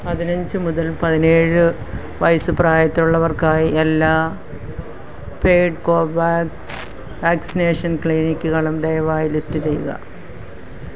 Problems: background sounds at intervals